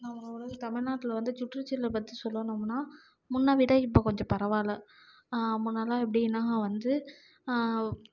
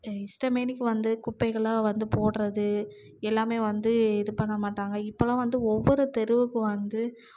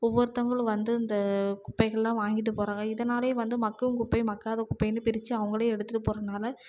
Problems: low volume